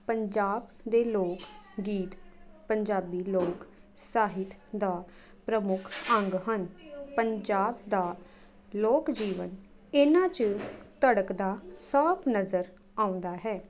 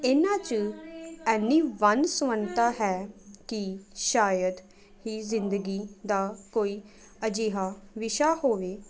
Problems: continuous background conversations